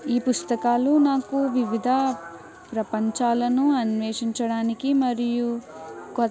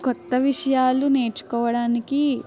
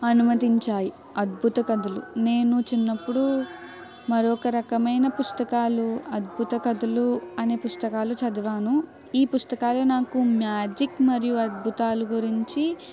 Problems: background sounds at intervals